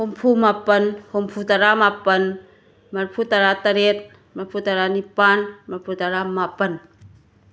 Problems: background sounds at intervals